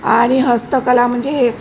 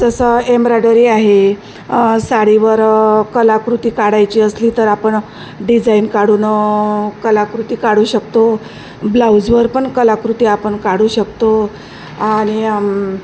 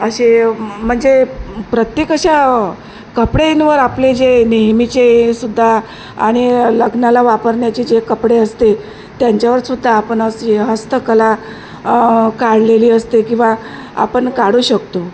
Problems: constant background noise